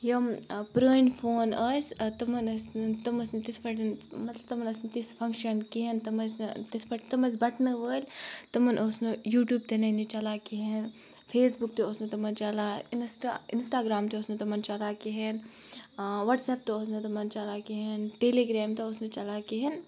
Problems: background sounds at intervals